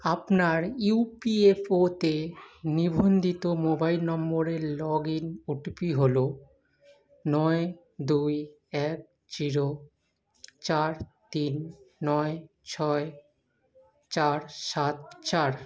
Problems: none marked